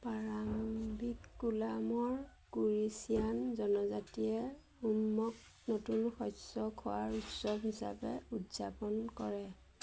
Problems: constant background noise